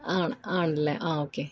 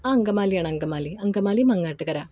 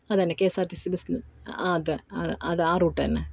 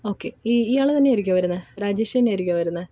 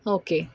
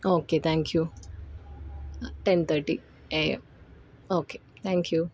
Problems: none marked